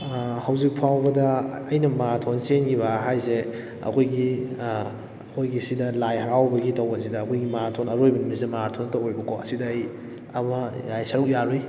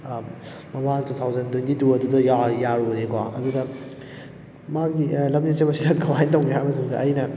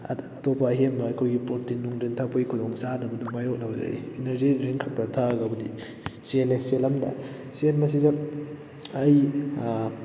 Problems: background sounds at intervals